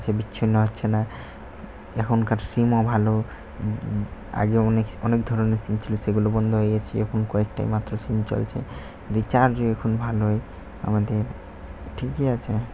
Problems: constant background noise